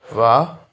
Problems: none marked